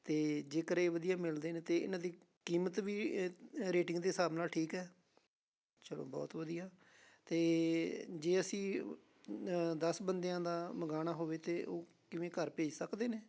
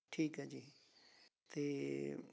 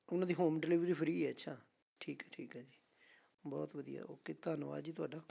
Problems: constant background noise